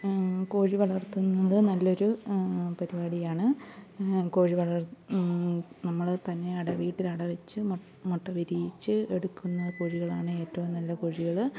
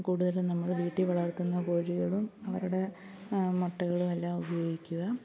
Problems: background conversations at intervals, low volume